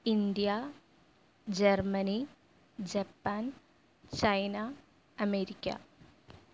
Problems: low volume